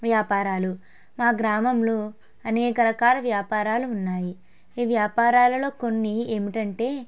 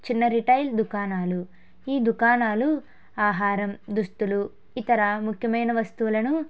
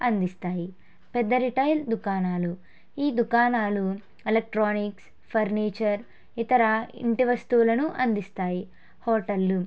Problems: none marked